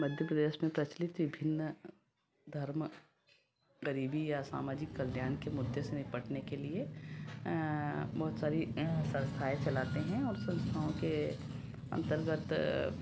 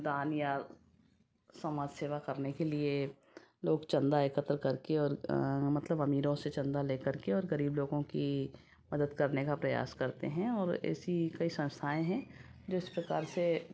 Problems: background conversations at intervals